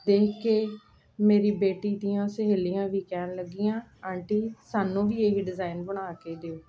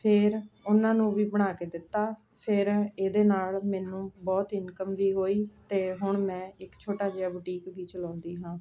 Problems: none marked